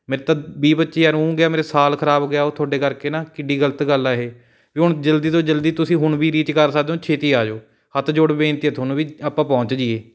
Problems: none marked